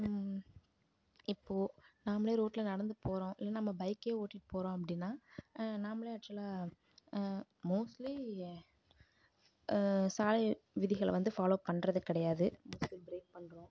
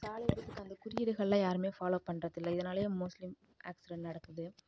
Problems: low volume